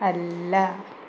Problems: constant background noise